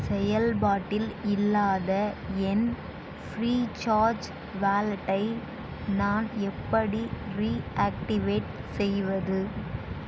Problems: constant background noise